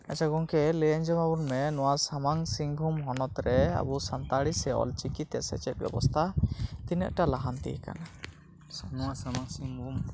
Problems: background sounds at intervals